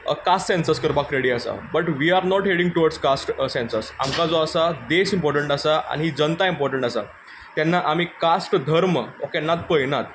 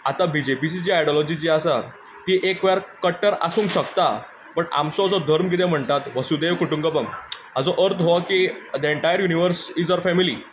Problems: background sounds at intervals